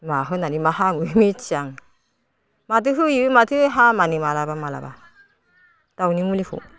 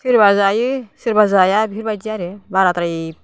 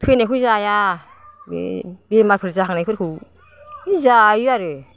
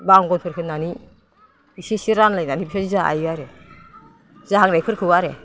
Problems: constant background noise